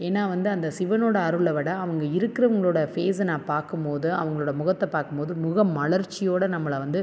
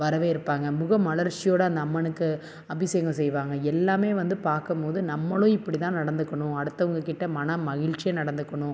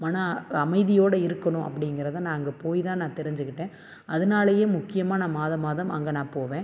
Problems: none marked